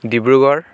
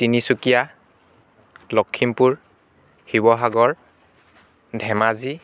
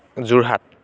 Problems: constant background noise